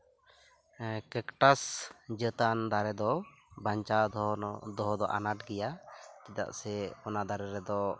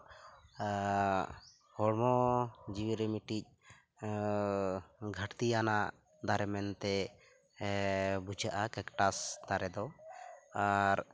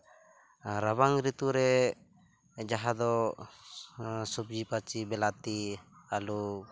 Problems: constant background noise, background conversations at intervals